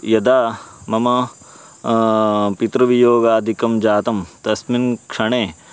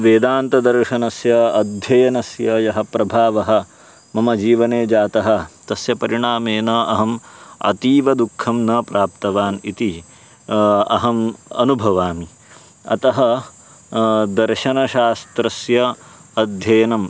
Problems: constant background noise